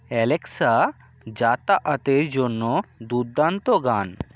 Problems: none marked